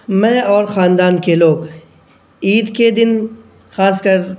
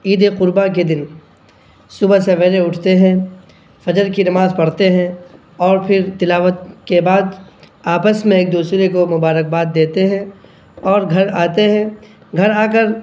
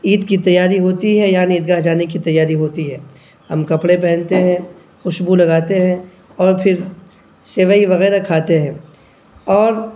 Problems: none marked